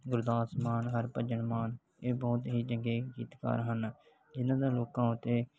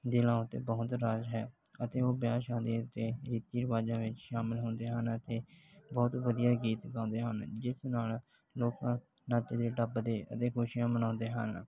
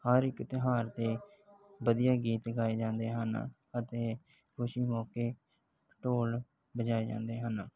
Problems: background sounds at intervals